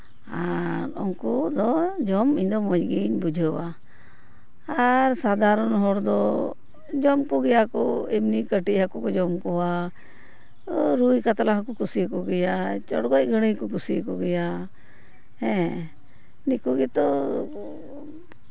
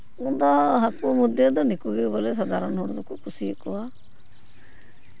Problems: background sounds at intervals